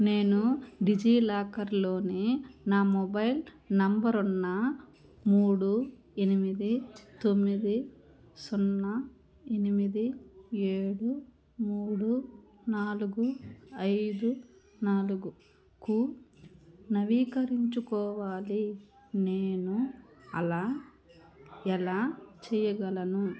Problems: none marked